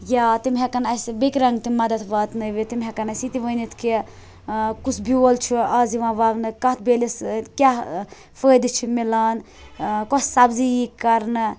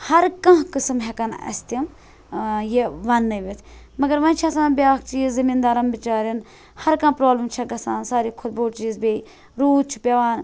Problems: constant background noise